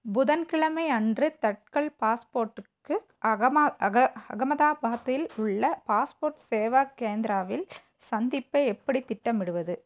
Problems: background sounds at intervals